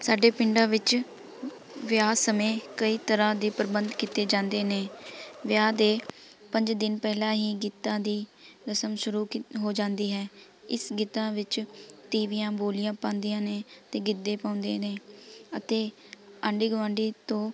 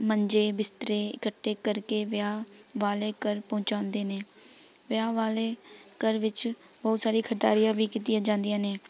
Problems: background sounds at intervals, continuous background conversations